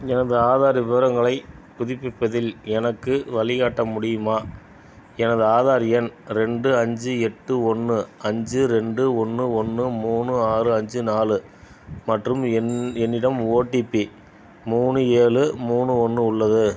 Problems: background sounds at intervals